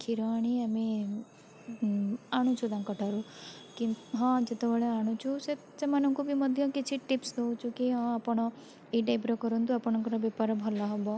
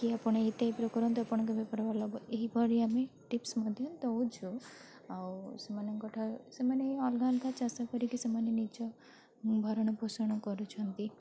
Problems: constant background noise, continuous background conversations